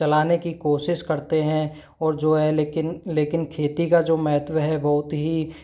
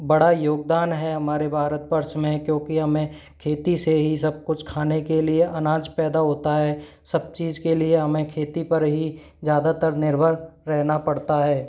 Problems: none marked